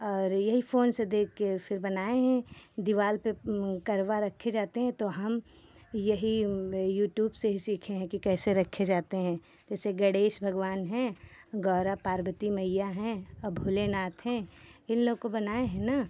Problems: none marked